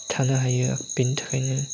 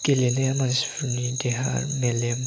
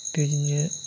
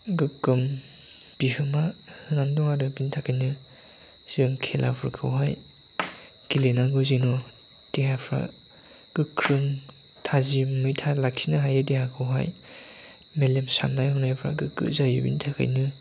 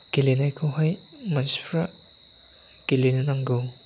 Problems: none marked